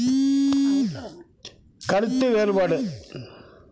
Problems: background sounds at intervals